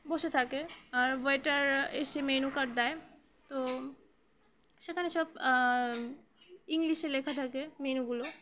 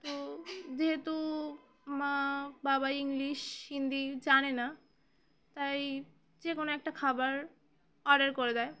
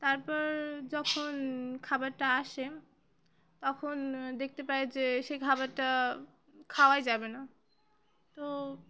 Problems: none marked